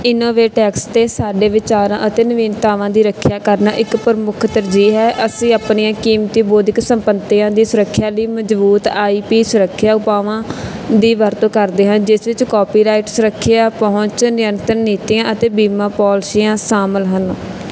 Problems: background sounds at intervals